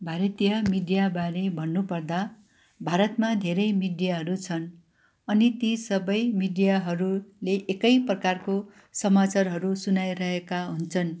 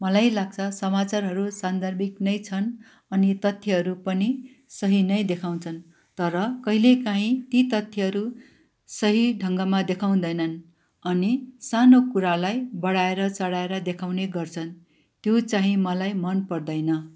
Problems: none marked